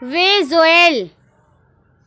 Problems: none marked